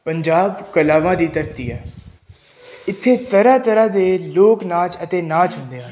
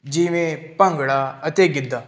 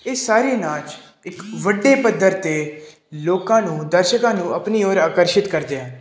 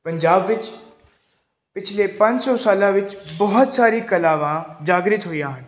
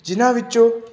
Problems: background sounds at intervals